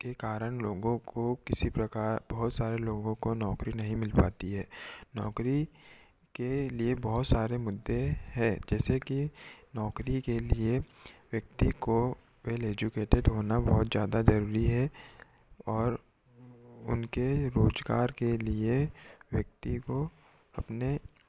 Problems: background sounds at intervals